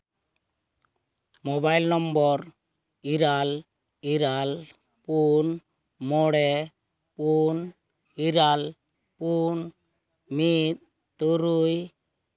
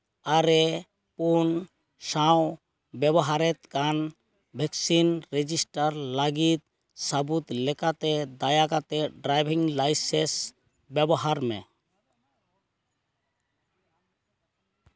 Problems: none marked